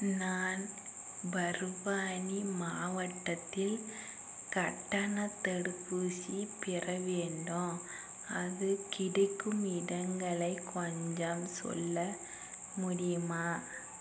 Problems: constant background noise